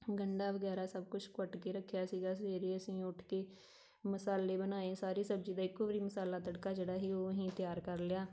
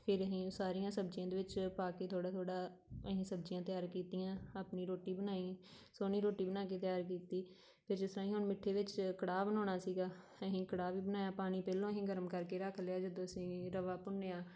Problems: background sounds at intervals